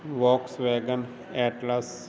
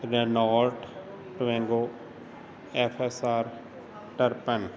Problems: constant background noise